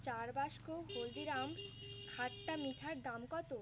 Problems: constant background noise